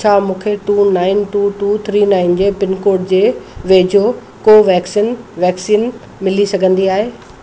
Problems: constant background noise, echo